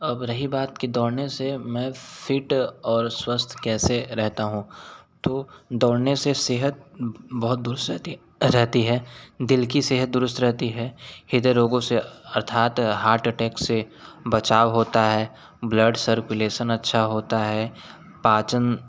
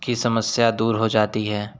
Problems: none marked